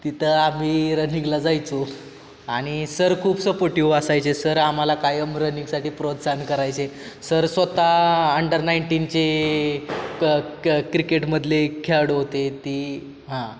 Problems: constant background noise